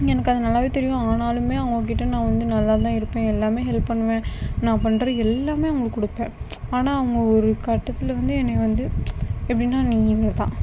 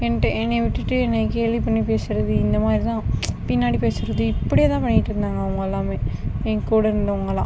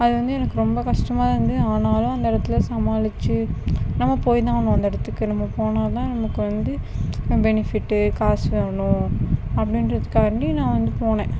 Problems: constant background noise